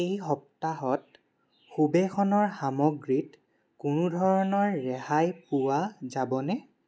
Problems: constant background noise